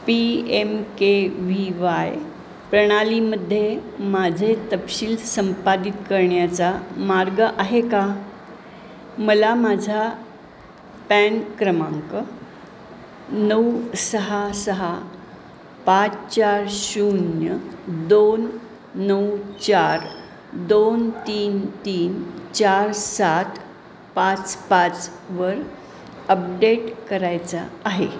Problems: constant background noise